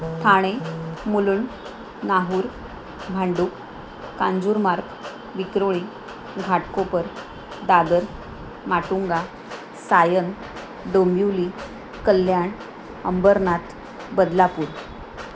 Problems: none marked